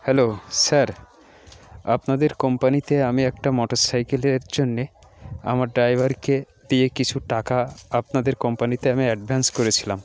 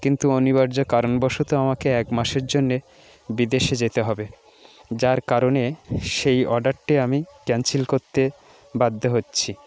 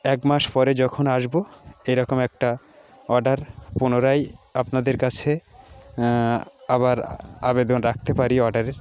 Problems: none marked